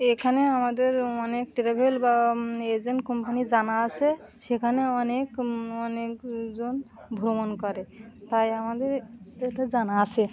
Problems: continuous background conversations